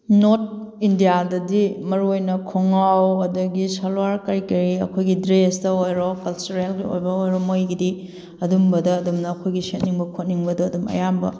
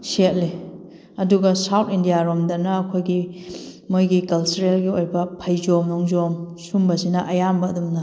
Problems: background sounds at intervals